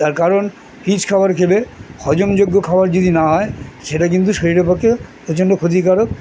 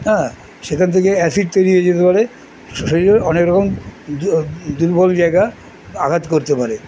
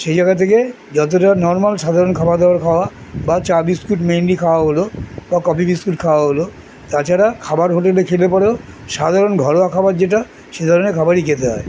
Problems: none marked